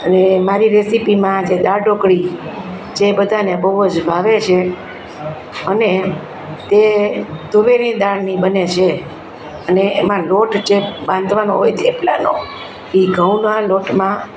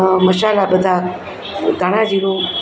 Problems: constant background noise